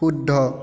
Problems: echo